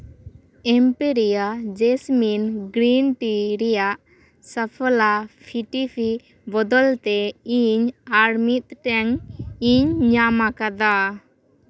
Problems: background conversations at intervals